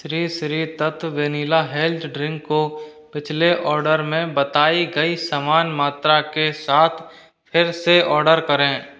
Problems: constant background noise